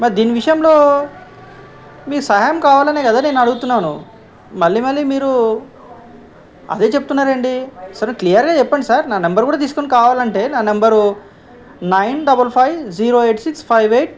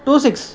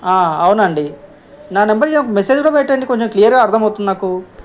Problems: background conversations at intervals